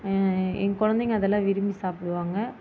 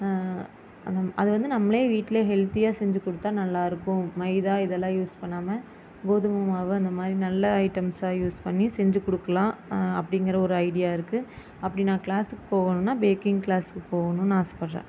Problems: constant background noise